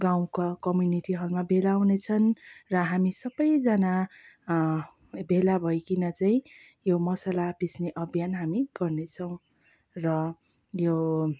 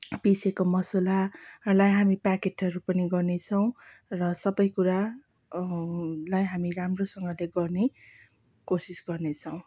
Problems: background sounds at intervals